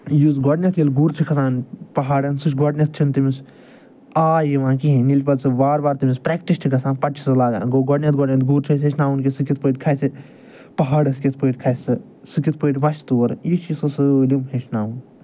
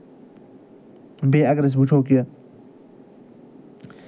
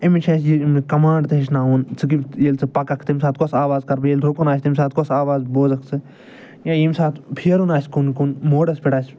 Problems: none marked